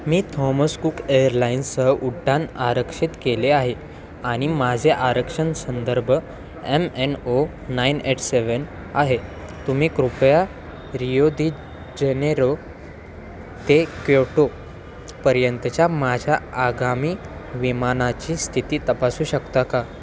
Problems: constant background noise, continuous background conversations